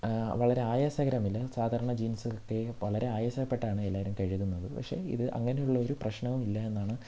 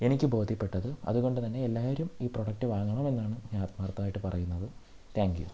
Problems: low volume